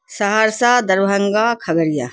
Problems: none marked